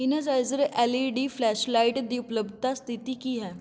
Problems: background sounds at intervals